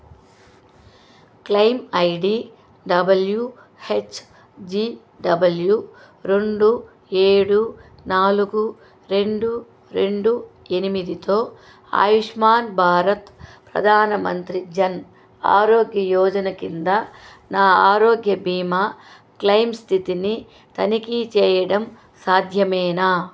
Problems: constant background noise